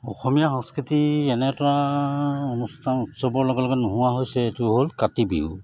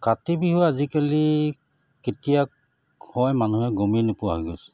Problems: none marked